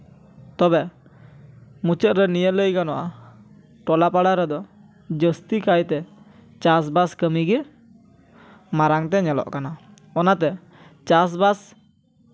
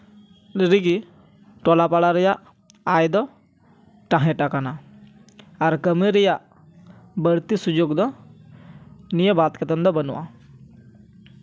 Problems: none marked